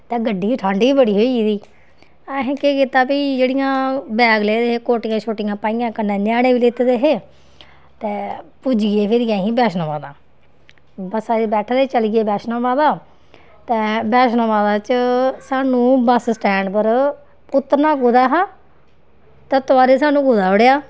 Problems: background sounds at intervals